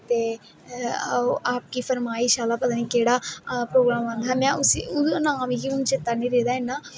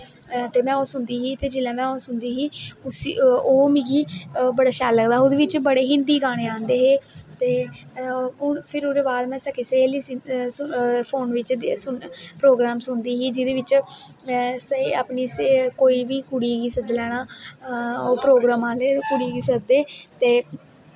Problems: constant background noise, echo